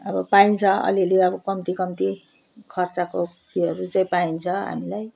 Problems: background sounds at intervals